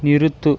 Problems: none marked